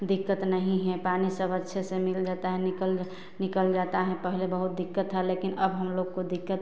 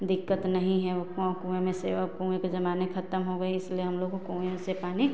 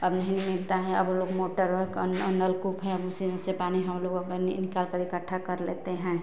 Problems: constant background noise